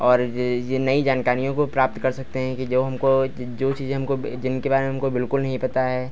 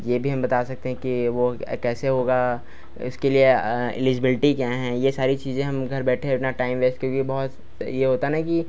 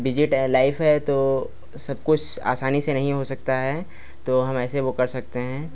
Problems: none marked